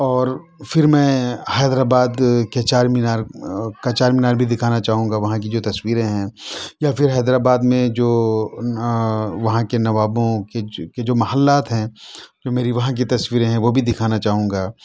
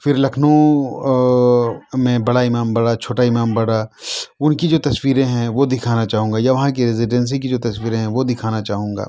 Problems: background sounds at intervals